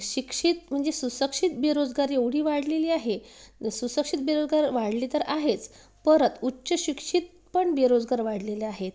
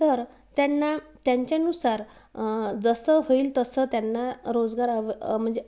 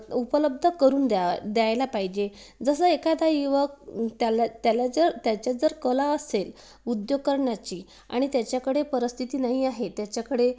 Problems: background sounds at intervals